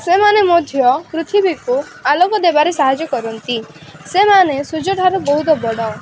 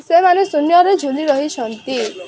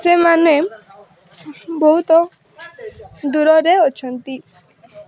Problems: constant background noise, continuous background conversations